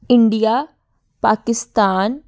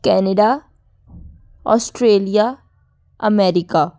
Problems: none marked